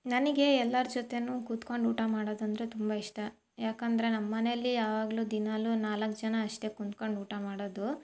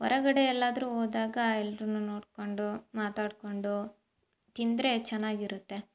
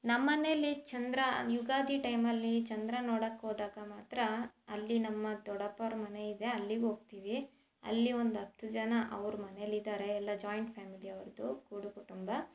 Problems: none marked